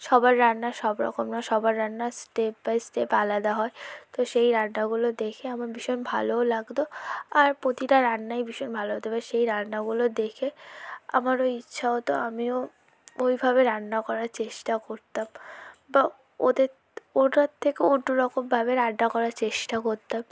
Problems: low volume